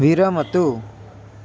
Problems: constant background noise